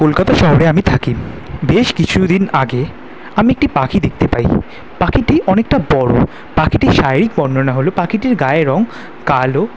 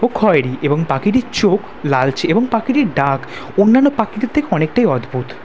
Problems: none marked